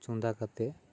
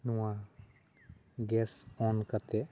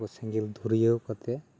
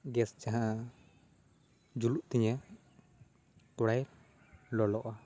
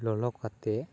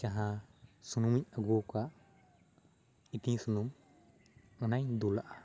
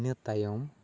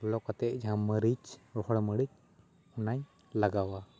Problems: constant background noise, background conversations at intervals